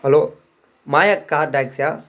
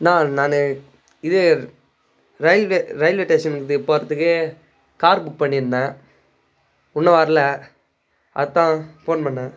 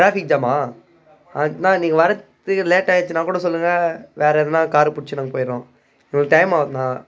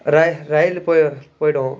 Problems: background conversations at intervals